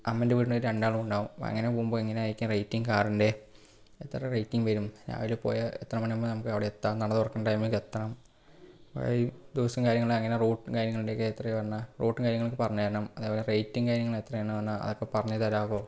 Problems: low volume